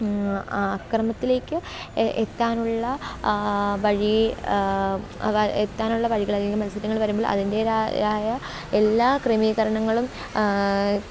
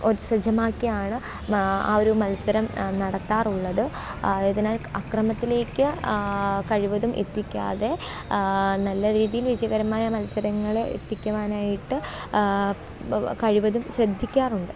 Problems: background sounds at intervals